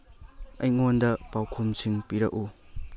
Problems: none marked